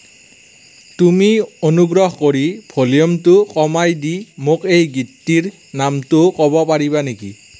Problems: none marked